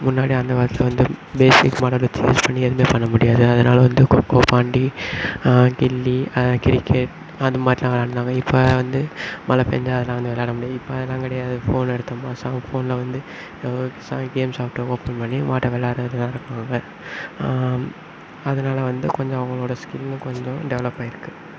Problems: background sounds at intervals